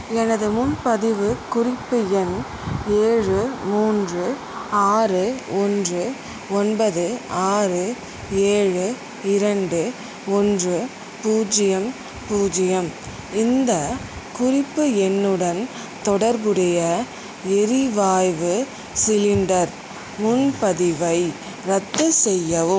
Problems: constant background noise